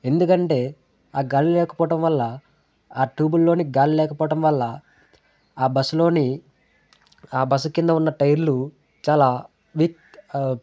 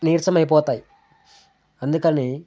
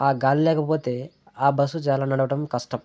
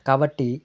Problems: background conversations at intervals